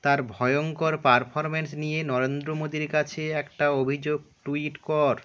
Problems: background sounds at intervals